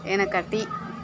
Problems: constant background noise